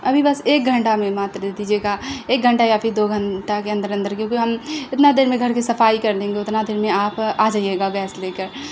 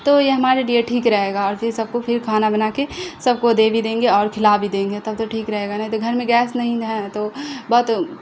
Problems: constant background noise